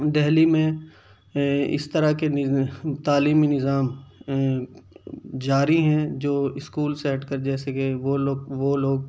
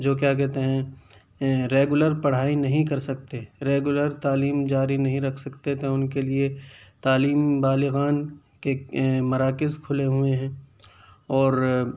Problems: none marked